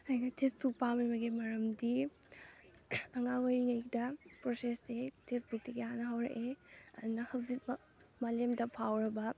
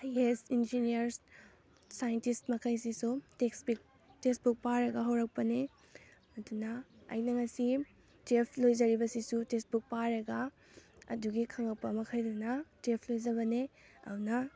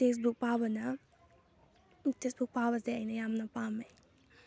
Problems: none marked